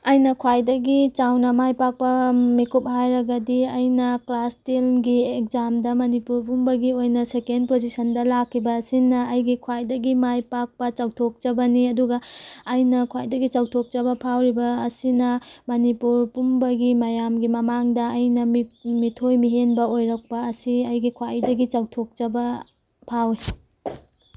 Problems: background sounds at intervals